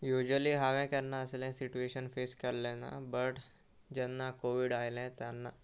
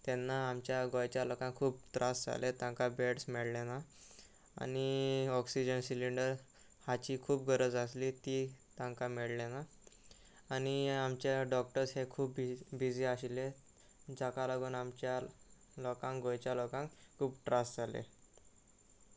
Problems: constant background noise